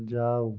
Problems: low volume